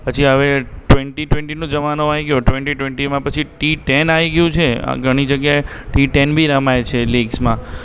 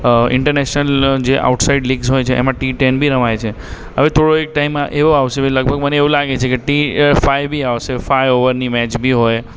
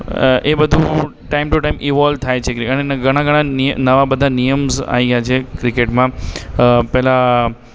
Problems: background sounds at intervals, echo